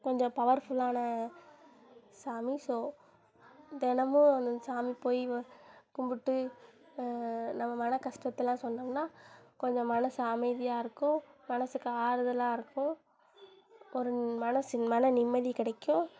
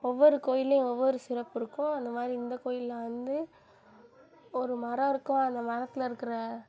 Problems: constant background noise